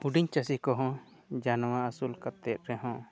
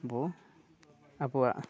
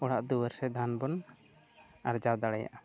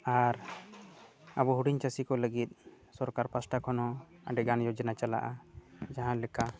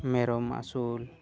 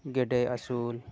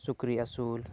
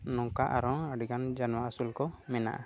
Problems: background sounds at intervals